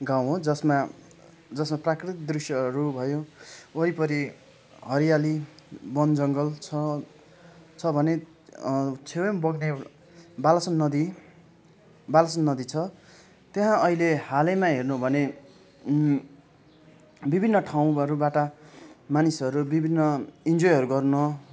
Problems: continuous background conversations